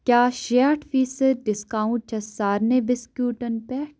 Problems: none marked